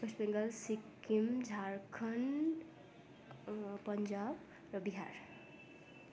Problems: none marked